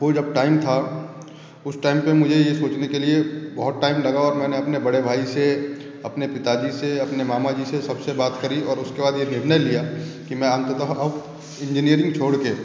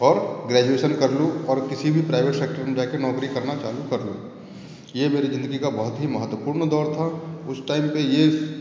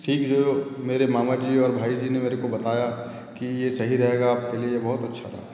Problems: echo